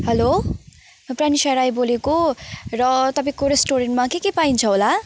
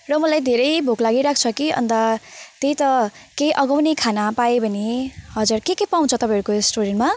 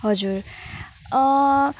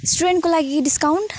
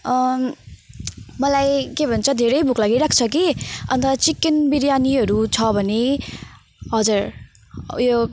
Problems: constant background noise